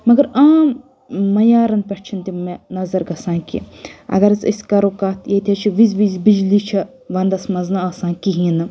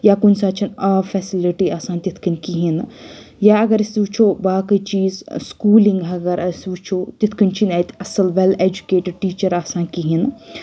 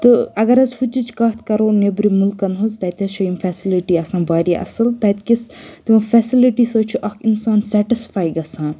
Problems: none marked